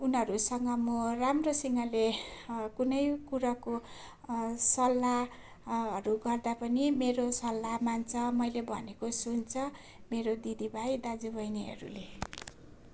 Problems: none marked